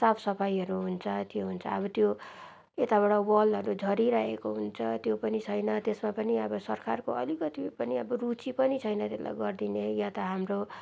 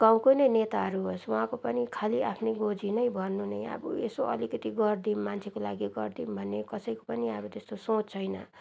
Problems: background sounds at intervals